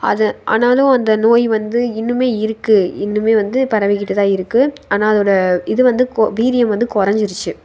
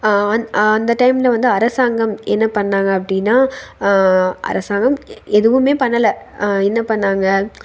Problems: none marked